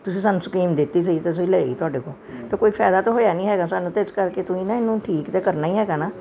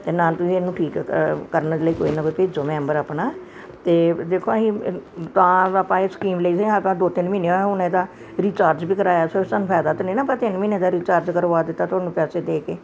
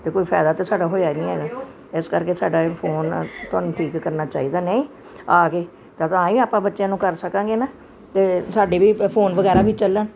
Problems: constant background noise